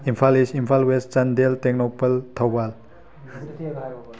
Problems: background conversations at intervals